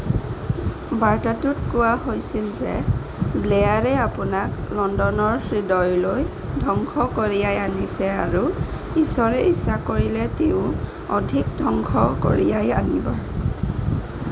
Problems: constant background noise